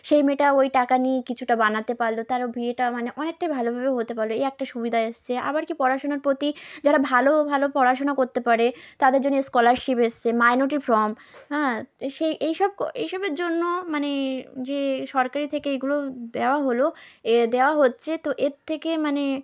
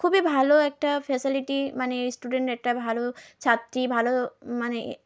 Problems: none marked